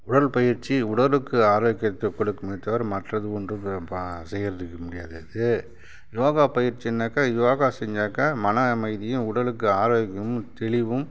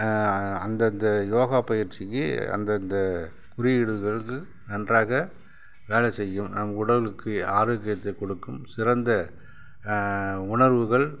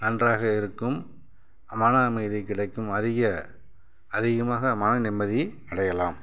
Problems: none marked